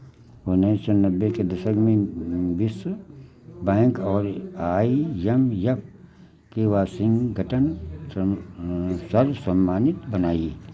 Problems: none marked